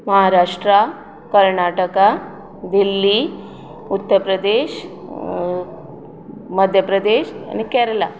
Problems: background conversations at intervals